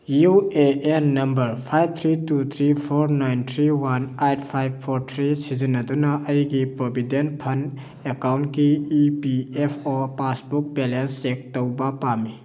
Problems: none marked